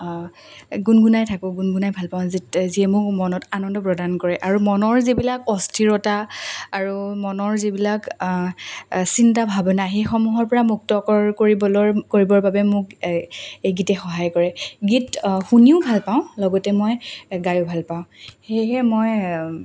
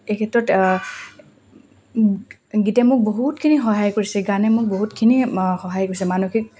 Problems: constant background noise